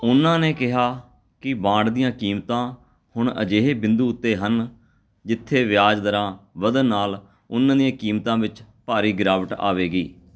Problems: background sounds at intervals, background conversations at intervals